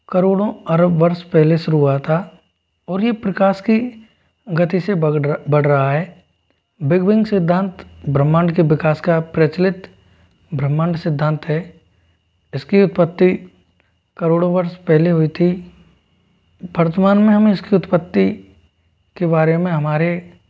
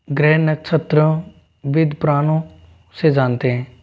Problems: constant background noise